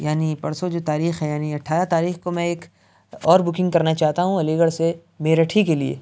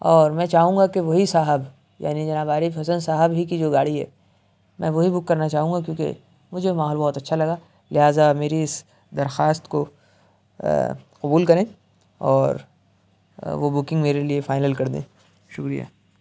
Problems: none marked